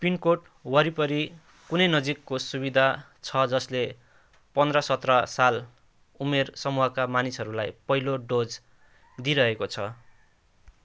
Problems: constant background noise